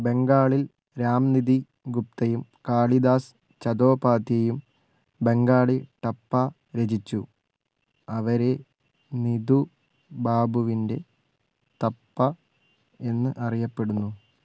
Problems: background sounds at intervals